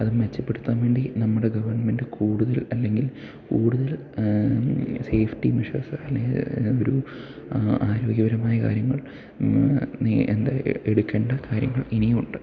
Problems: low volume